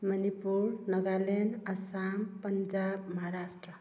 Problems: none marked